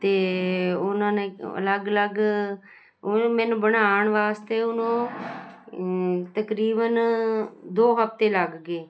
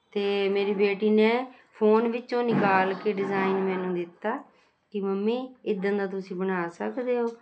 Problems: constant background noise